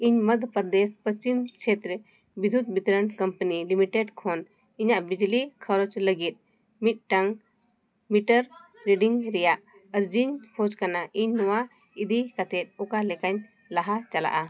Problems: none marked